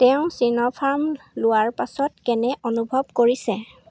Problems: constant background noise